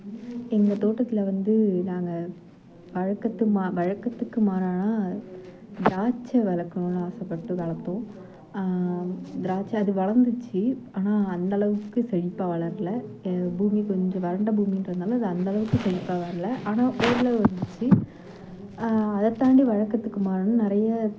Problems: background sounds at intervals, low volume